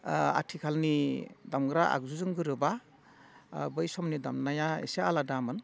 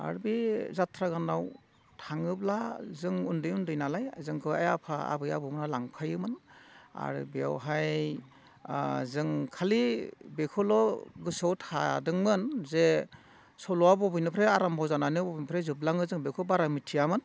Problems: none marked